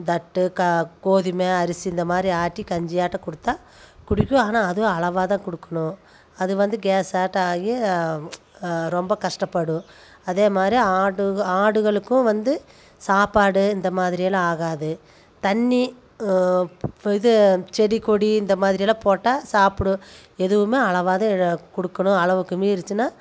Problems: none marked